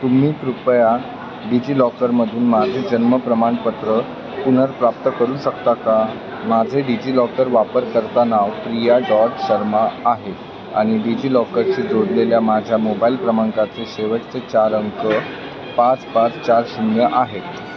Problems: constant background noise, background conversations at intervals